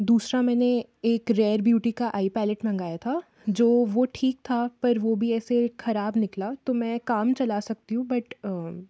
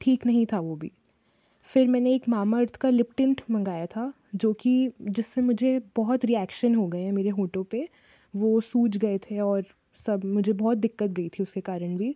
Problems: background sounds at intervals